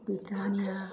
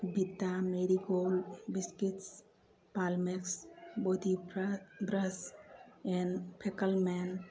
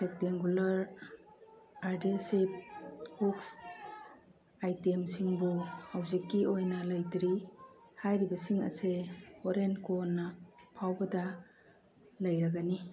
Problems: background sounds at intervals, background conversations at intervals